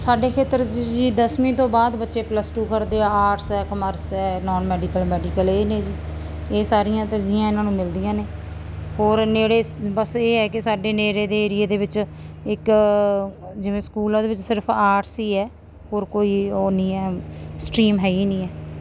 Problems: none marked